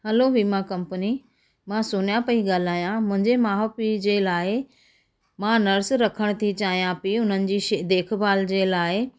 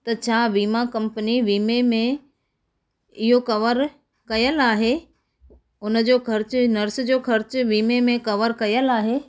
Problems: background sounds at intervals, echo